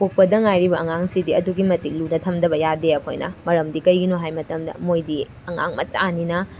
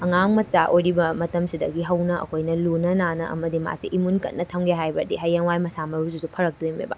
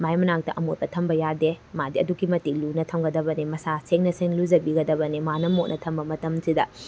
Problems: background sounds at intervals